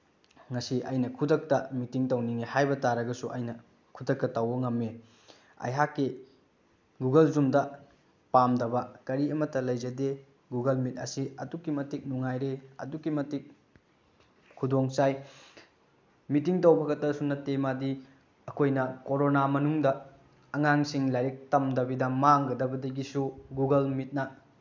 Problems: none marked